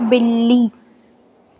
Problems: constant background noise, echo